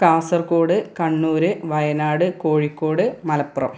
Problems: none marked